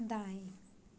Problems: none marked